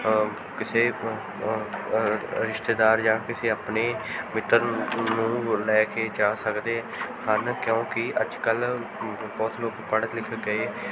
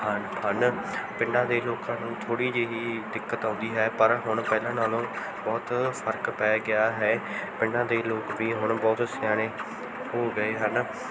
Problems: background sounds at intervals, background conversations at intervals